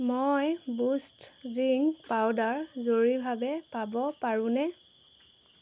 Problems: none marked